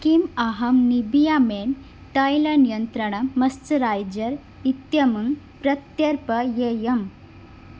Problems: none marked